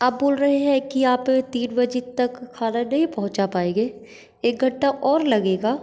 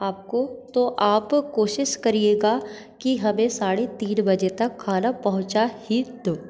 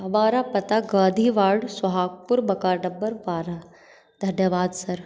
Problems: constant background noise, echo